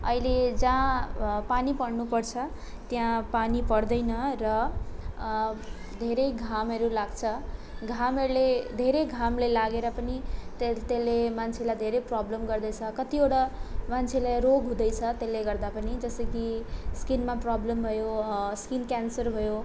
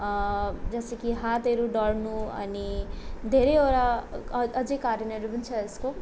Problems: none marked